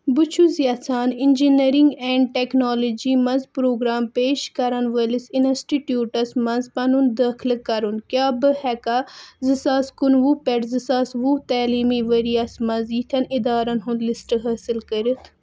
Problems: none marked